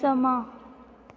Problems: none marked